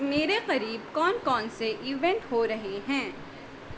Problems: constant background noise